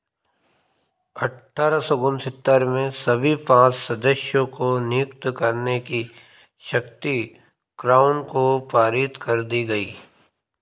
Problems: none marked